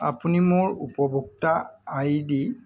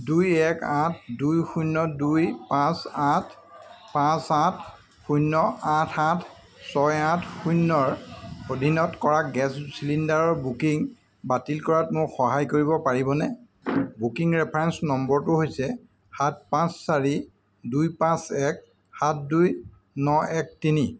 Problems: constant background noise